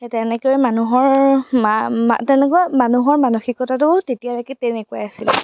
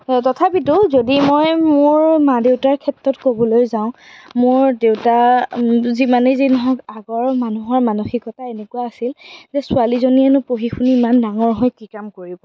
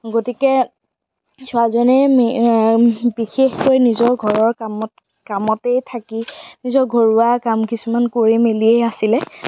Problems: background sounds at intervals